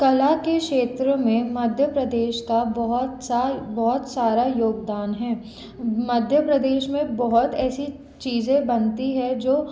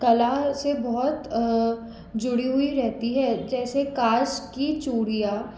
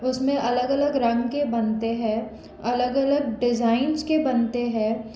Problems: constant background noise